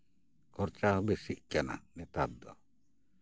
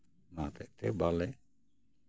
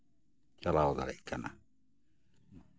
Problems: background sounds at intervals